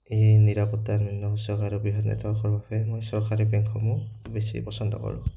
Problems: none marked